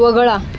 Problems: none marked